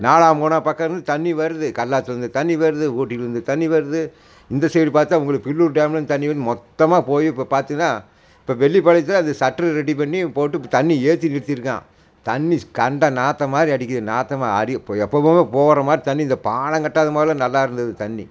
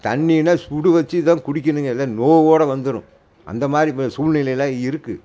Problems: constant background noise